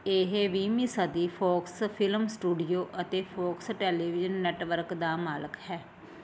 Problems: constant background noise